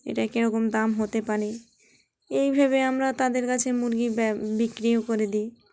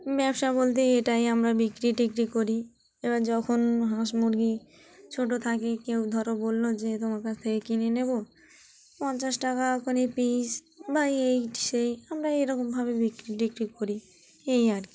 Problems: background sounds at intervals, continuous background conversations